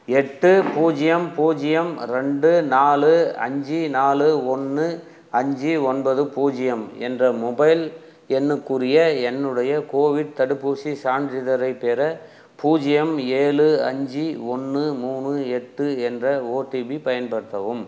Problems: none marked